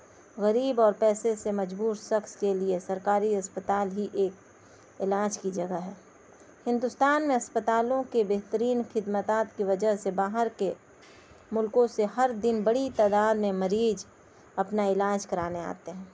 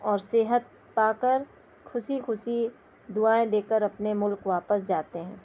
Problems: constant background noise, low volume